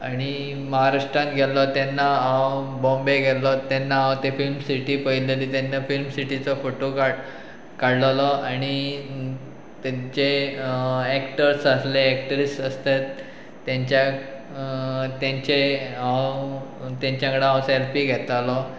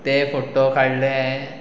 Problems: background sounds at intervals